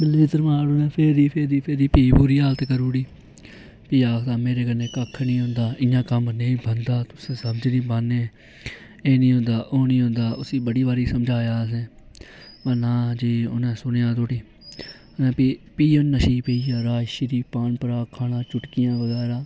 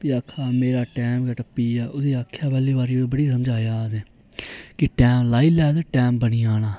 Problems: none marked